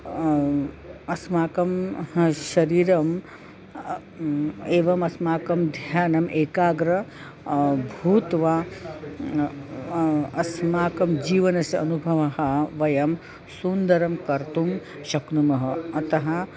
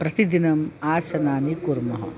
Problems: constant background noise, continuous background conversations